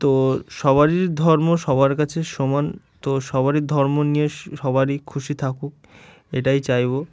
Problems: background sounds at intervals